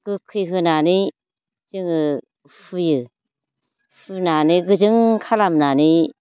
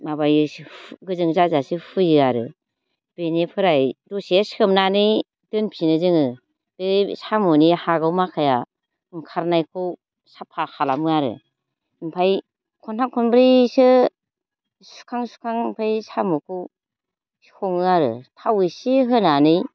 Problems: low volume